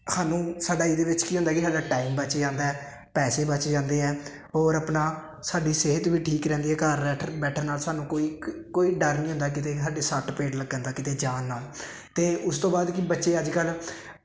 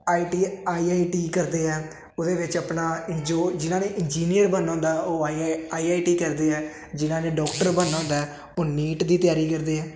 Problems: constant background noise